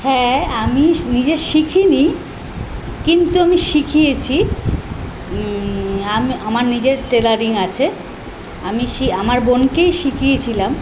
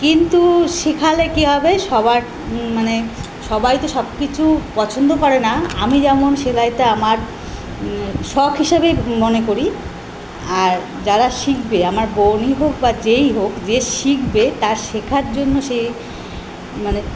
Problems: constant background noise